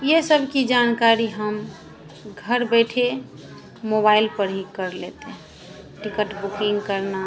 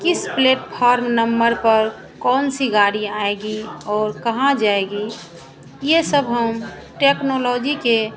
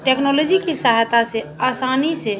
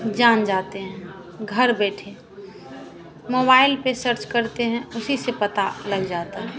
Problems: none marked